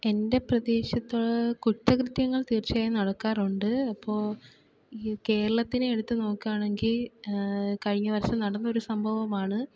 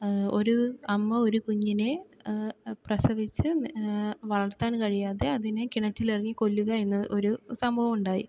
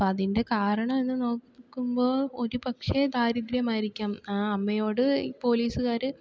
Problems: none marked